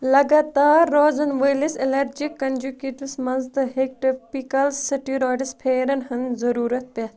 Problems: constant background noise